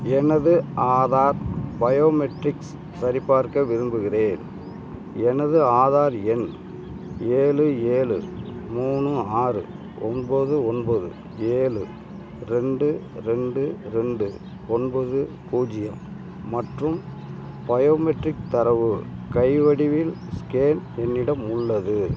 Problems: none marked